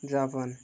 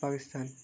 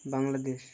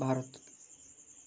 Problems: constant background noise